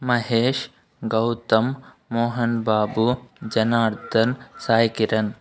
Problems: background sounds at intervals